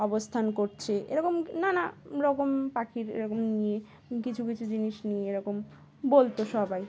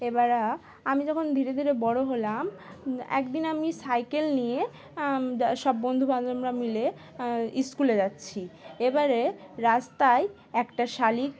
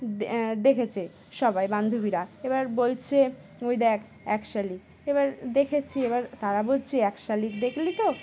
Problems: constant background noise, background conversations at intervals